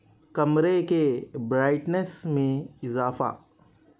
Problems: none marked